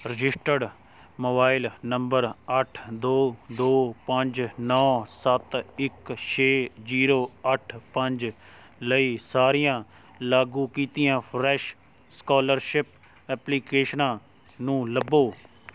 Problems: none marked